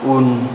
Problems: low volume